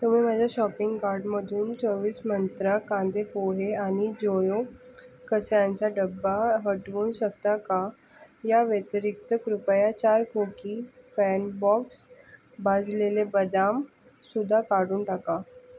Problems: constant background noise